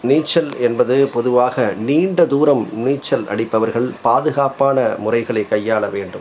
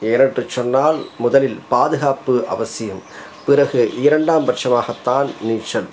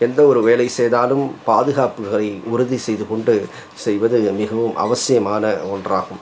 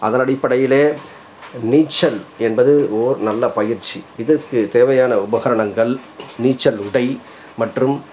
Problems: constant background noise